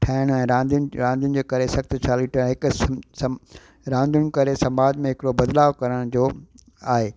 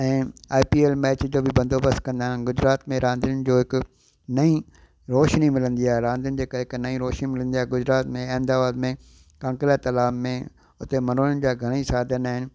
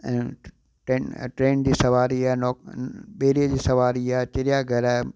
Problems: constant background noise, echo